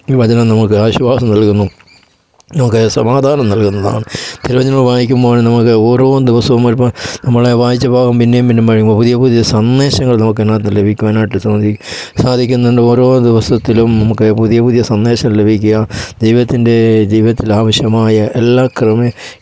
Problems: background sounds at intervals